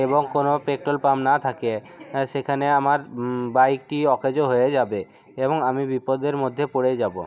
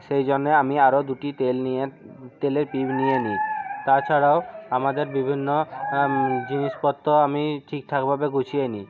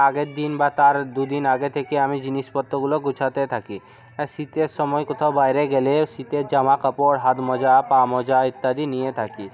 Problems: none marked